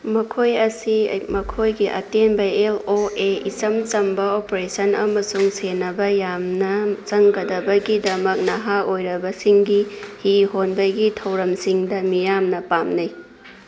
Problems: constant background noise